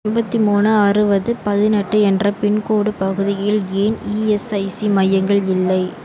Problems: none marked